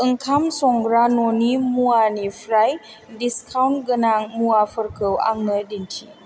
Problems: none marked